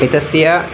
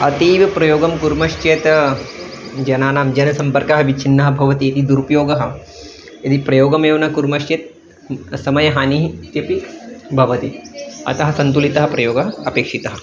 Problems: none marked